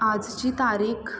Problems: background sounds at intervals